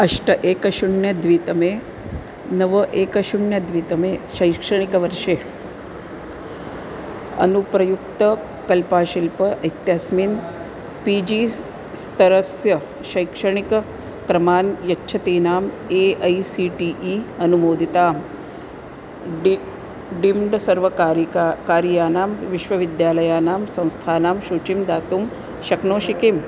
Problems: constant background noise